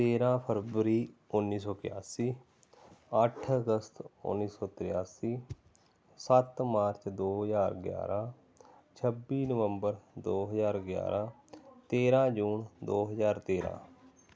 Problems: none marked